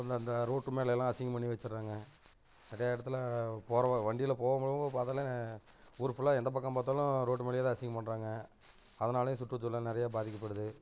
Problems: constant background noise